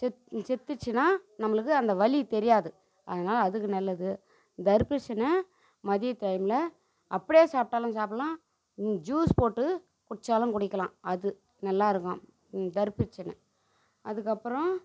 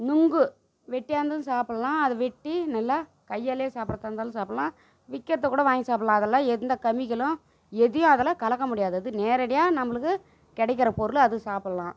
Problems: constant background noise, low volume